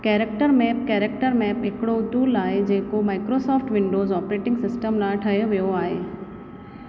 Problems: constant background noise, echo